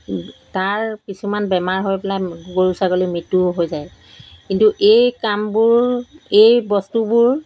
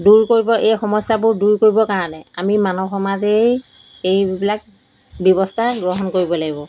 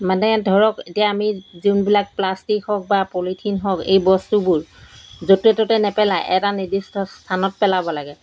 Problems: background sounds at intervals